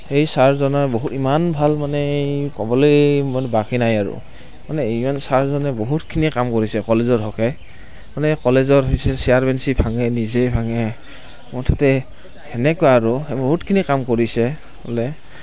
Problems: constant background noise